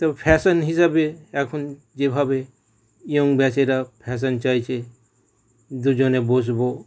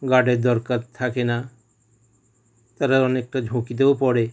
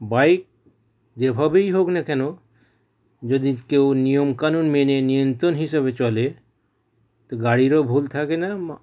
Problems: none marked